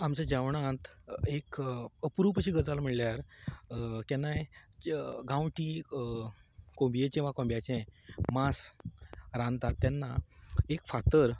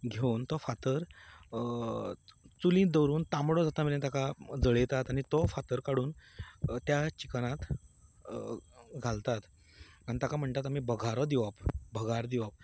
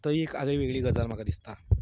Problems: constant background noise